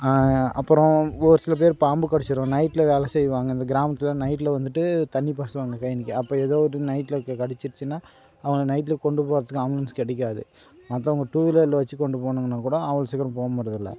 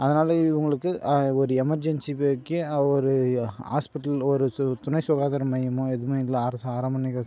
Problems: none marked